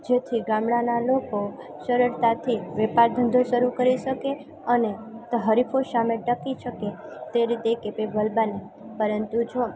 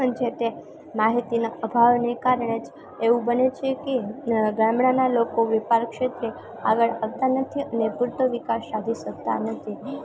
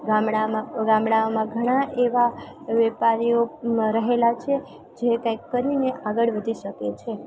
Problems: constant background noise, continuous background conversations